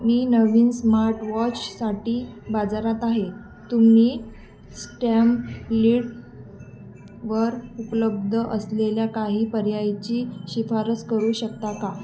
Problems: constant background noise, background conversations at intervals